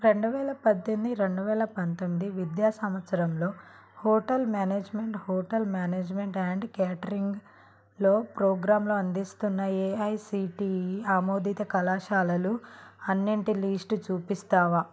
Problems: none marked